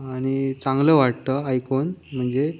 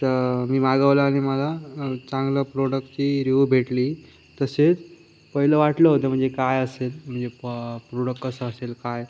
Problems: constant background noise